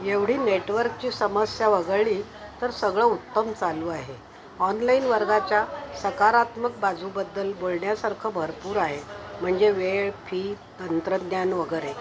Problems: constant background noise, background conversations at intervals